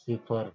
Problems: constant background noise, low volume